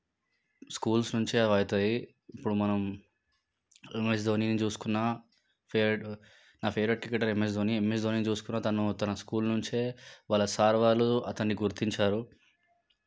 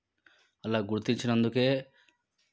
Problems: background sounds at intervals